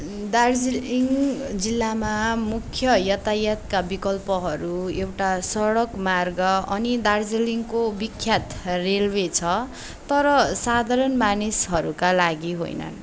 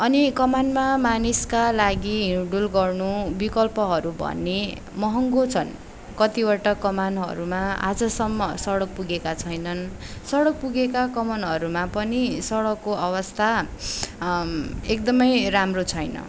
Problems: background sounds at intervals